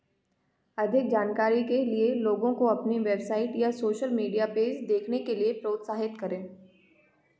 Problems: none marked